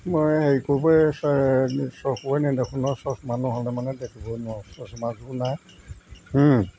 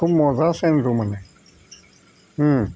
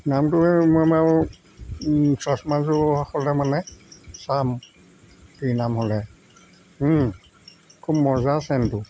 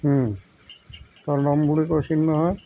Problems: constant background noise